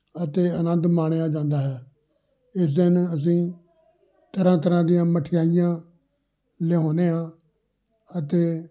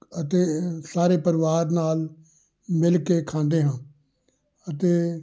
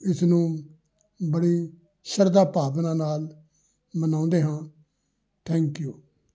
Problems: background conversations at intervals